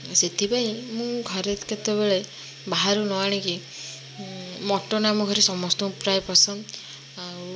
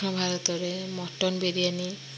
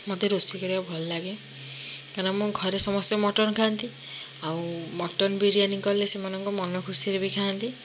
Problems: constant background noise